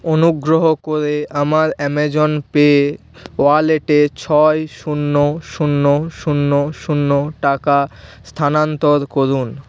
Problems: none marked